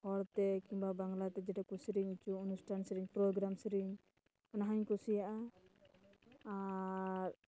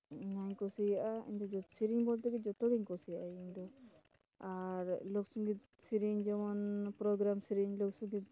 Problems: background conversations at intervals, low volume